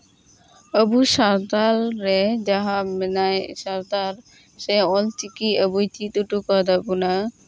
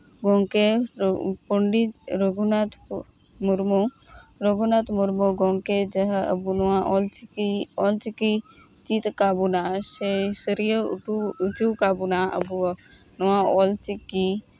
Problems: constant background noise, background conversations at intervals